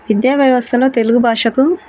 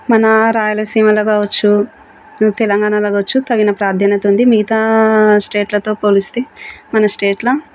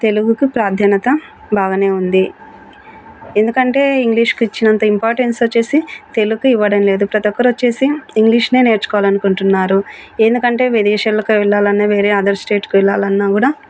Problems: constant background noise